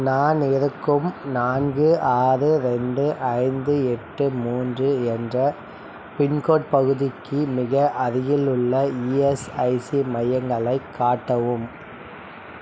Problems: none marked